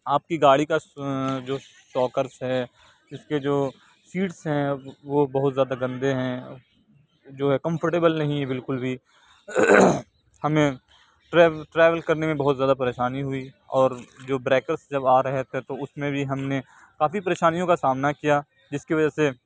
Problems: none marked